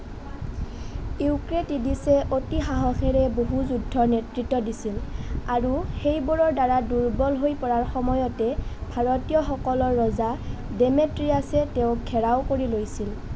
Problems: constant background noise